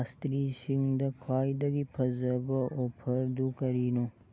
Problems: background sounds at intervals